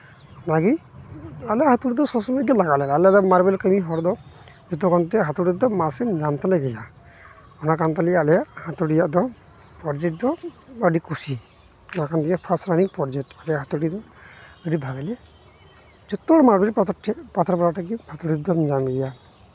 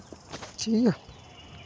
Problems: constant background noise